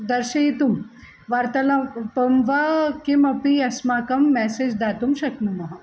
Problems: none marked